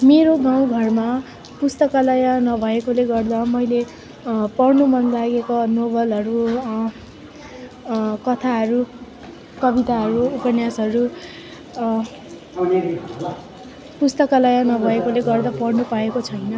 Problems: constant background noise, continuous background conversations